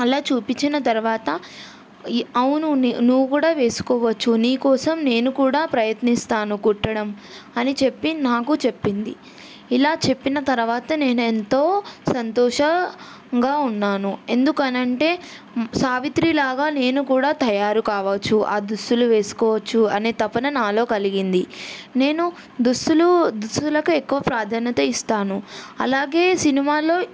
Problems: none marked